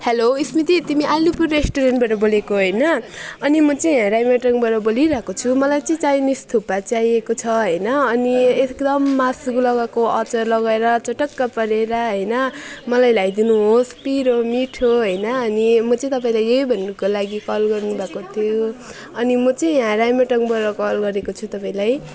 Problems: none marked